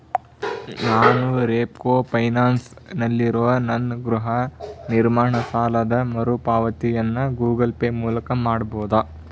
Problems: none marked